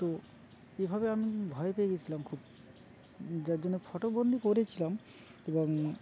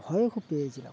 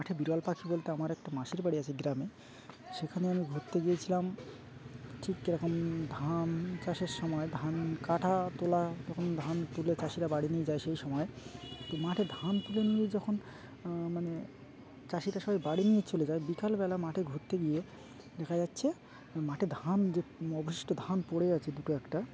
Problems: constant background noise, background conversations at intervals